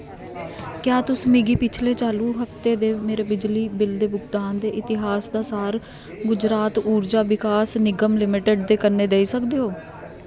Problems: constant background noise